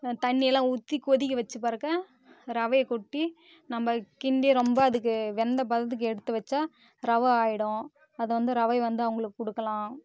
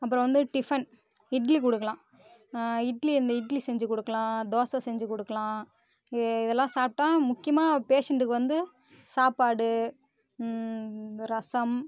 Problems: constant background noise